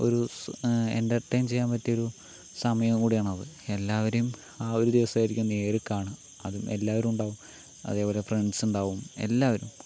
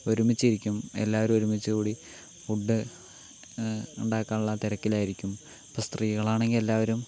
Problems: constant background noise